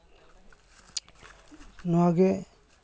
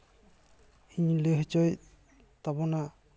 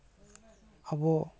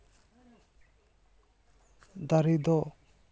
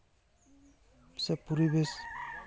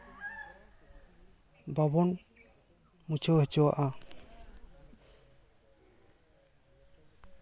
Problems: background sounds at intervals, continuous background conversations